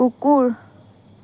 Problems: background conversations at intervals